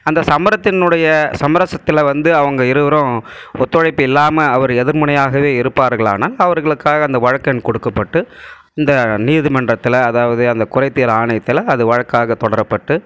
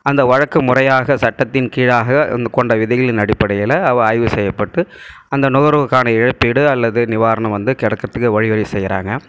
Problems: none marked